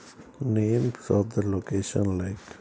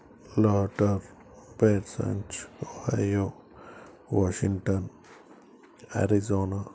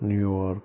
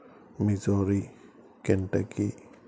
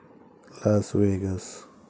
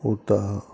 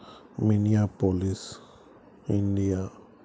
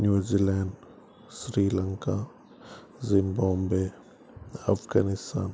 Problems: background sounds at intervals